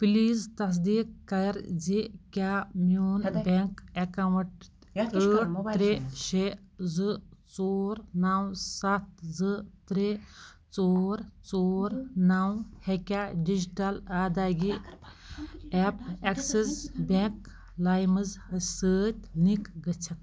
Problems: background sounds at intervals